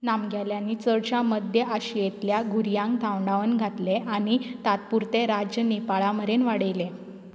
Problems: background sounds at intervals